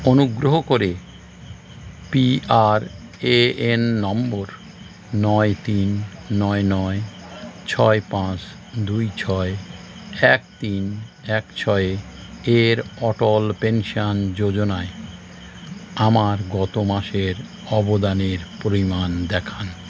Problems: constant background noise